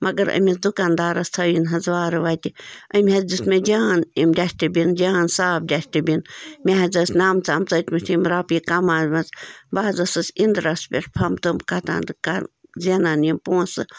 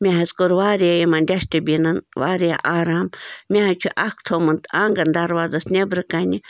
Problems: constant background noise